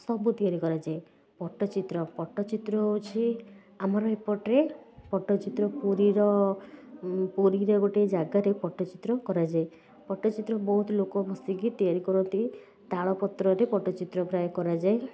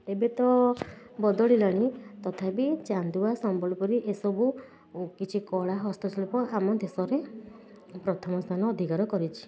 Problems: none marked